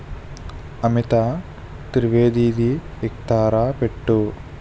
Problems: constant background noise